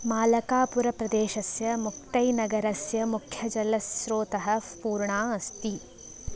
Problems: none marked